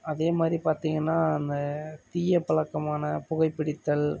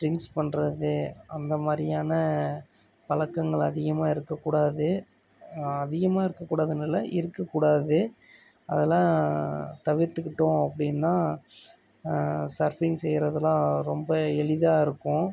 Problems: none marked